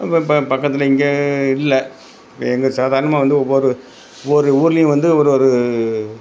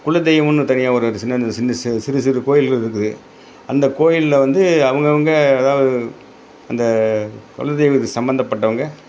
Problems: none marked